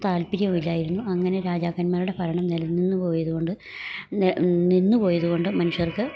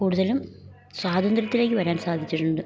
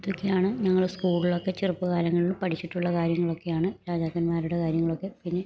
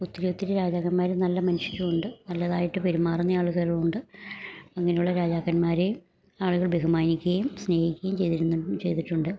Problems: low volume